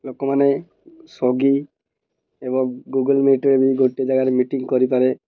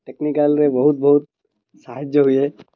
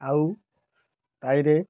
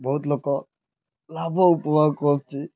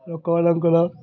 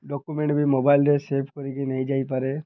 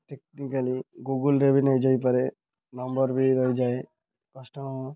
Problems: constant background noise